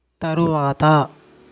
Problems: none marked